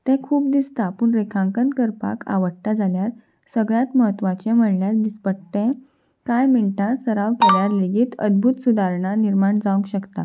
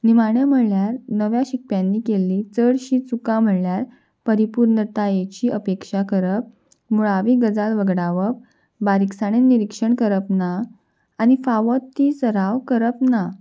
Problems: background sounds at intervals